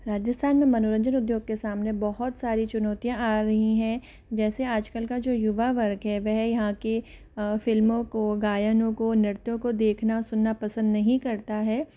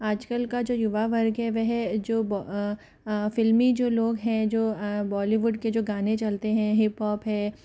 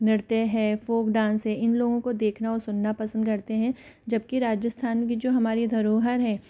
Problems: background sounds at intervals